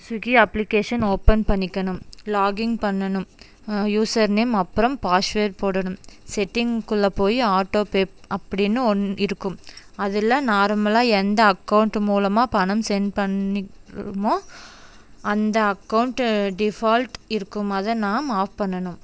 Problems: background sounds at intervals